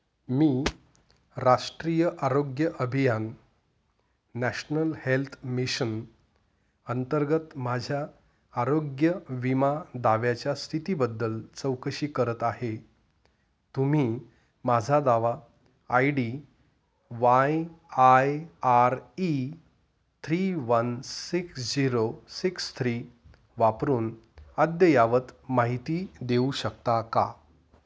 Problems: none marked